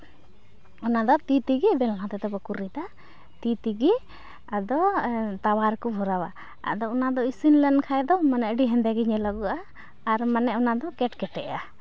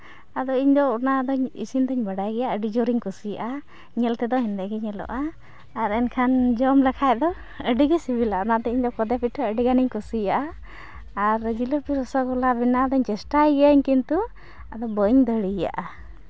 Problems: constant background noise